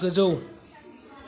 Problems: background conversations at intervals